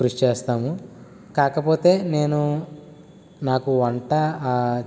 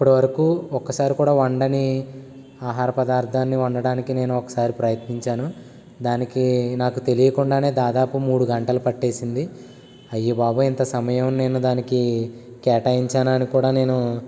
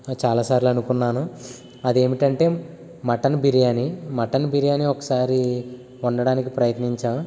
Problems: constant background noise